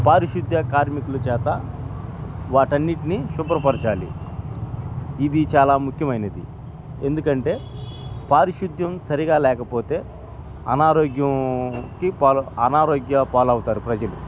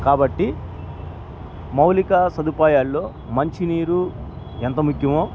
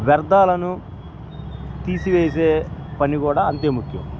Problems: background sounds at intervals